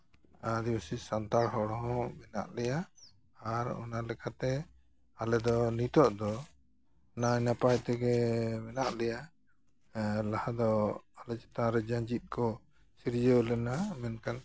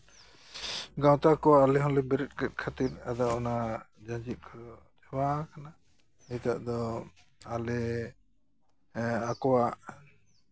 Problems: none marked